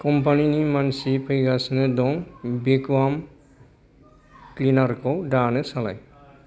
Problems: none marked